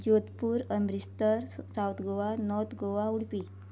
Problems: low volume